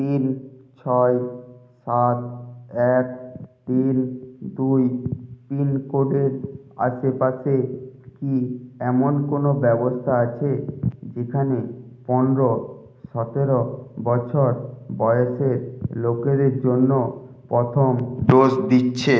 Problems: low volume